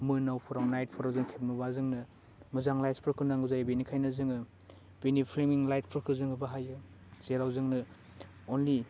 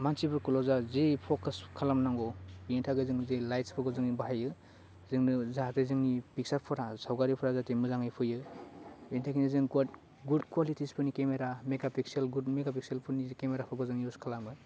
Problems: constant background noise